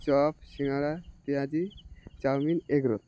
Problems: constant background noise